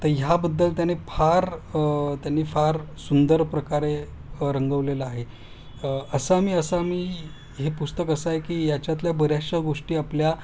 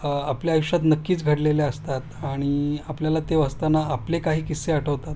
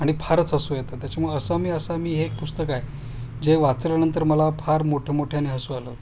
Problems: constant background noise